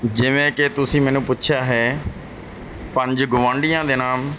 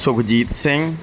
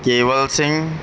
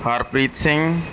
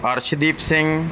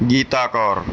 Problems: none marked